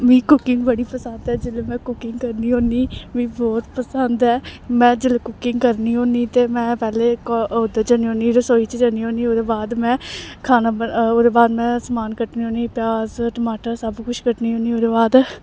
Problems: none marked